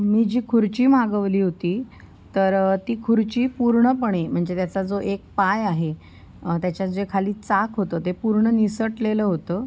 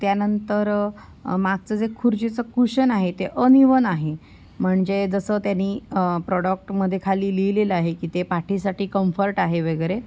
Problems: constant background noise